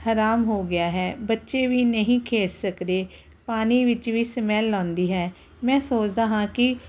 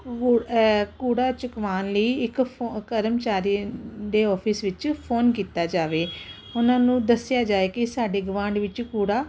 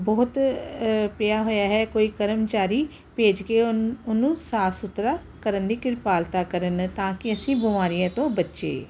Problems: none marked